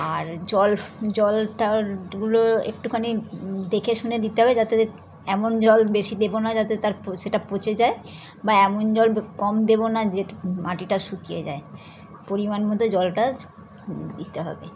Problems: background sounds at intervals, continuous background conversations